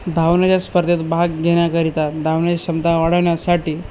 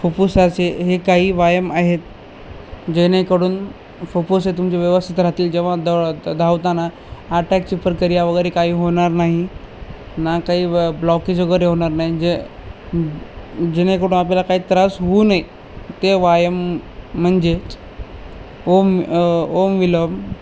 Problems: none marked